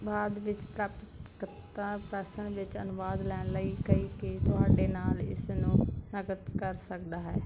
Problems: none marked